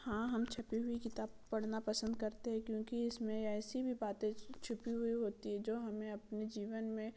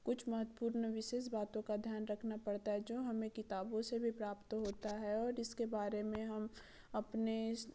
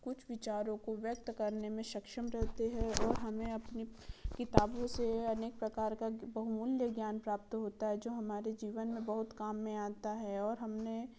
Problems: none marked